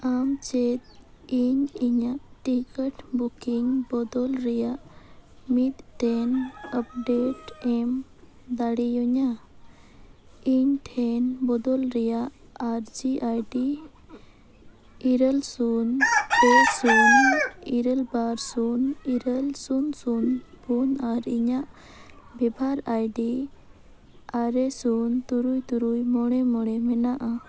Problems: constant background noise, low volume